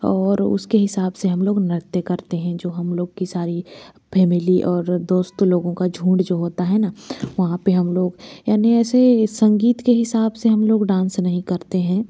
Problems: background sounds at intervals